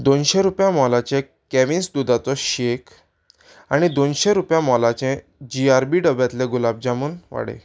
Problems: background sounds at intervals